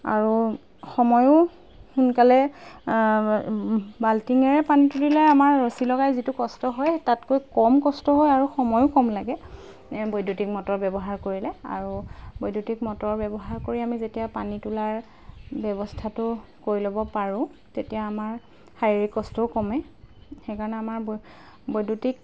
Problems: background sounds at intervals